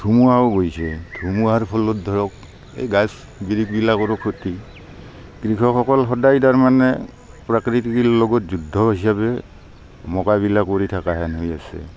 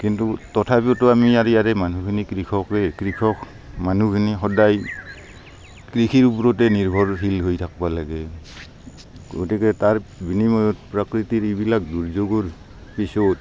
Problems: constant background noise, background conversations at intervals